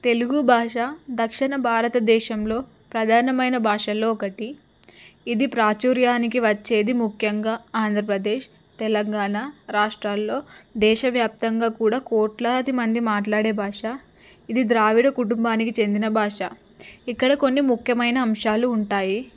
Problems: none marked